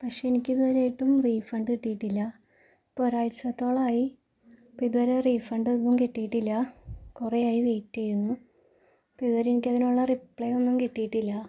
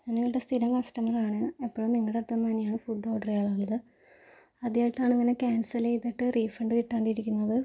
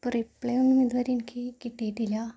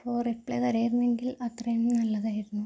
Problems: low volume